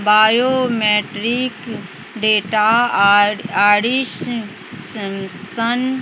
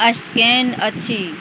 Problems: none marked